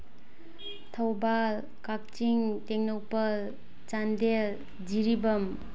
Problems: background sounds at intervals